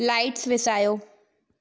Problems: echo